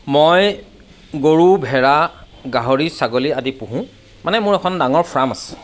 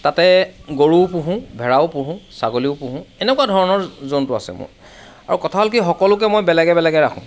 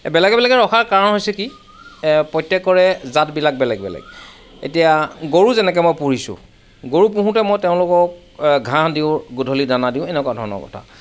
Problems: none marked